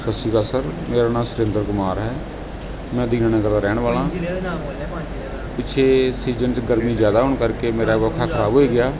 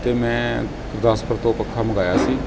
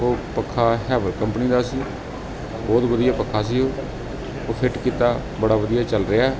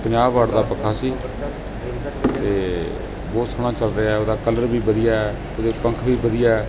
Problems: background sounds at intervals